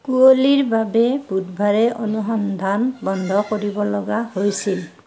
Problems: background sounds at intervals